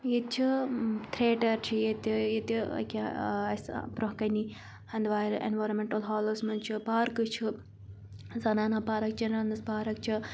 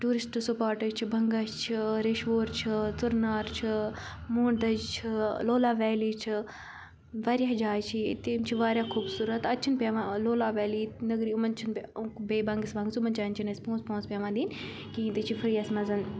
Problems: constant background noise